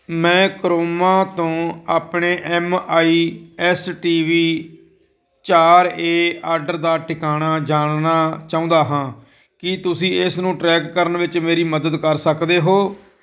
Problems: none marked